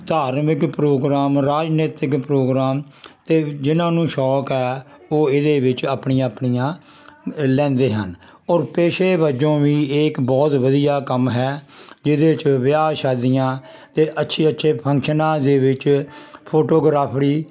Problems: constant background noise